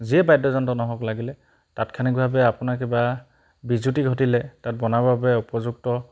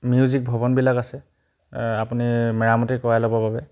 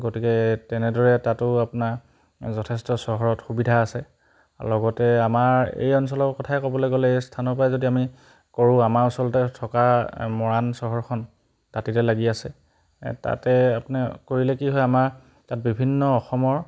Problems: background sounds at intervals